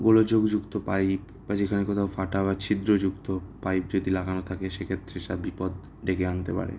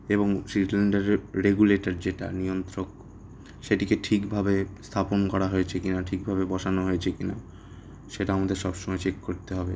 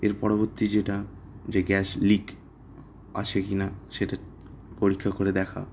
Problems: none marked